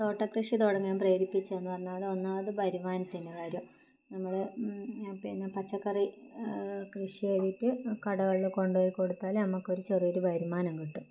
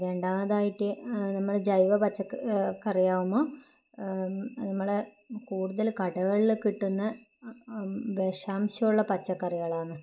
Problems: low volume